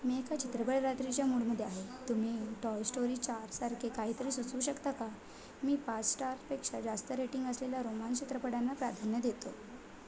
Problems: constant background noise, background conversations at intervals